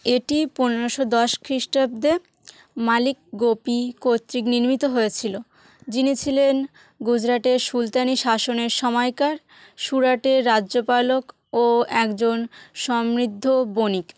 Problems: constant background noise